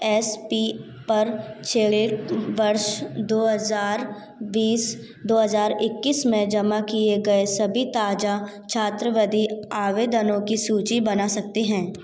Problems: constant background noise